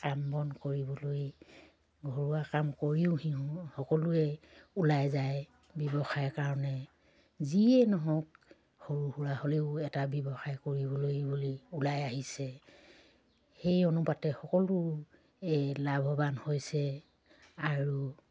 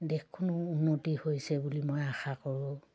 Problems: low volume